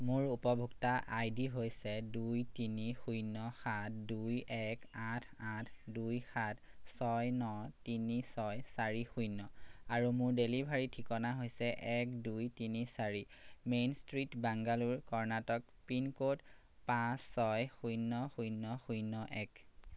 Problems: none marked